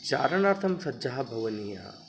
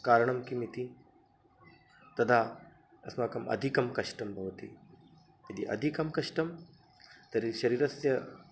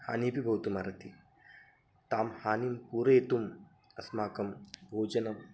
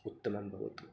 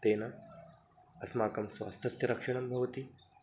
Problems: constant background noise